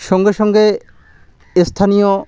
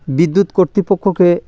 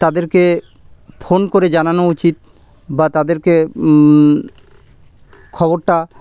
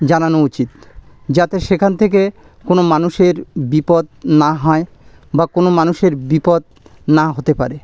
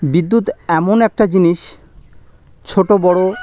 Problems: background sounds at intervals